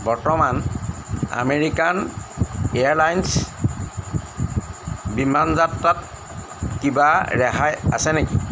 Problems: none marked